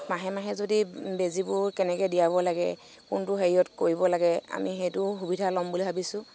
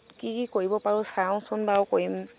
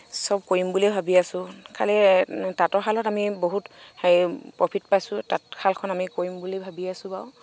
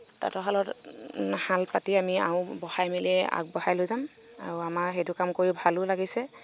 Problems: none marked